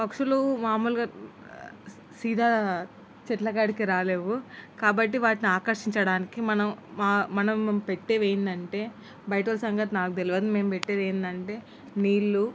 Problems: constant background noise